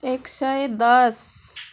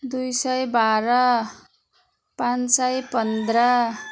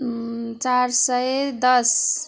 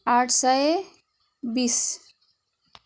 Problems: constant background noise, continuous background conversations